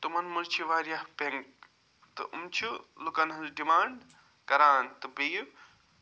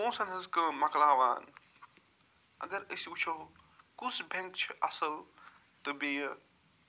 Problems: none marked